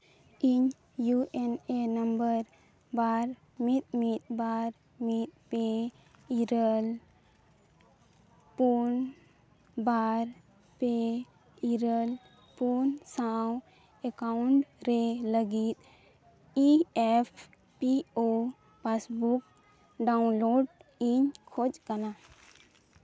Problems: background sounds at intervals